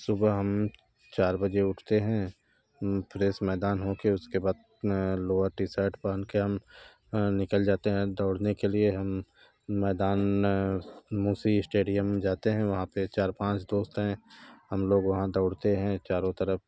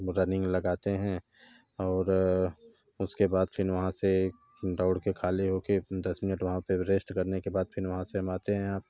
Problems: none marked